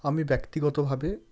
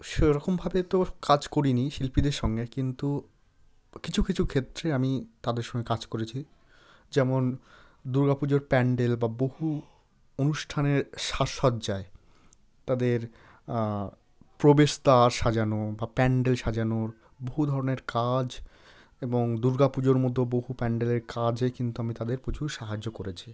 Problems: none marked